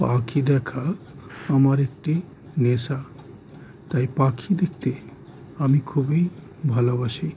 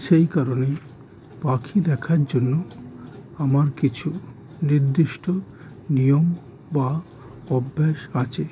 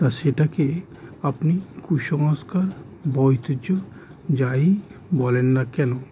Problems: constant background noise